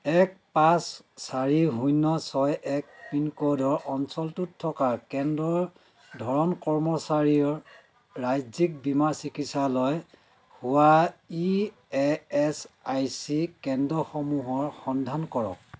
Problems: background conversations at intervals